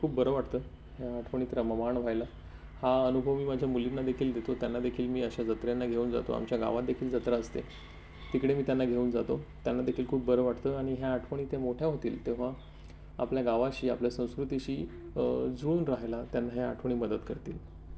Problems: none marked